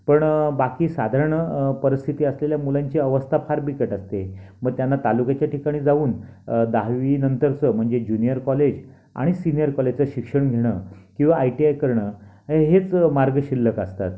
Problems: none marked